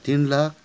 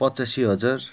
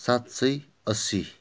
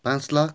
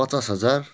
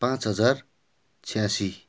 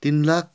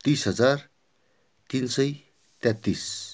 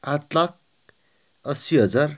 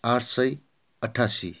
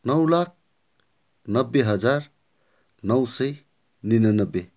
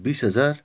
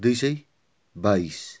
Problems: none marked